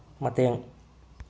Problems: low volume